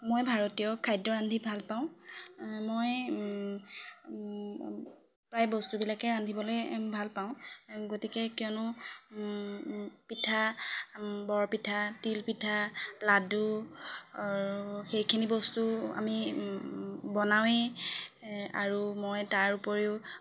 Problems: background sounds at intervals, background conversations at intervals